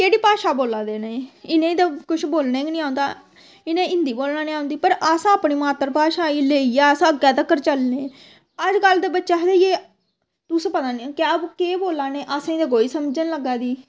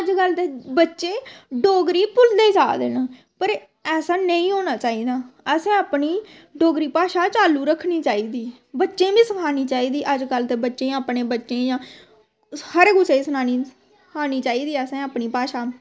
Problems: constant background noise